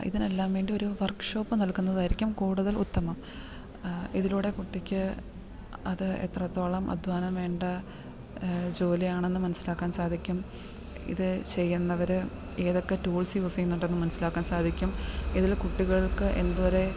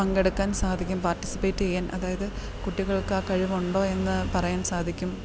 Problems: background sounds at intervals